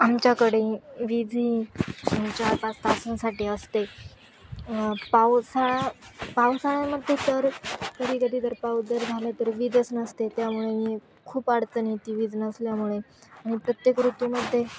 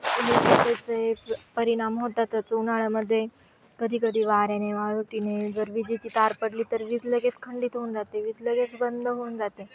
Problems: background sounds at intervals, continuous background conversations